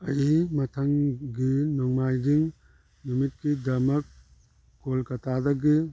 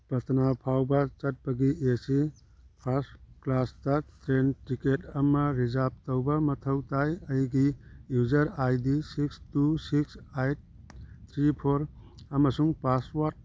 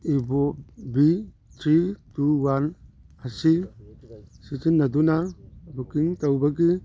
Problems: background sounds at intervals, background conversations at intervals